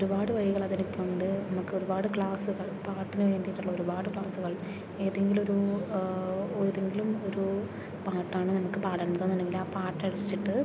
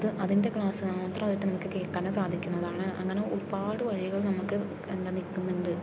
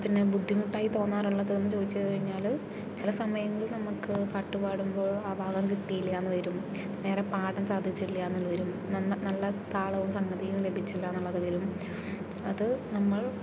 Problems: background sounds at intervals